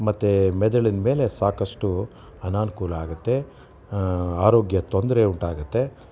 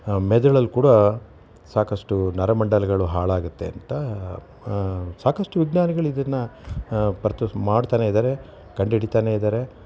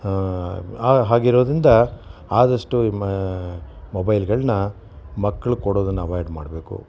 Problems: none marked